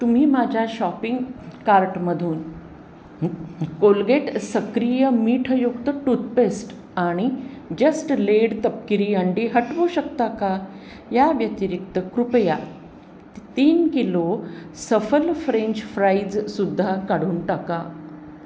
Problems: constant background noise